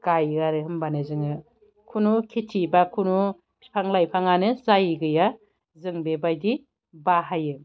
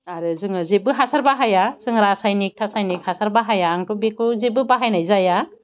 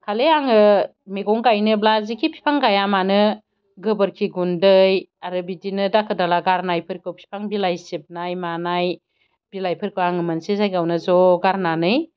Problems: none marked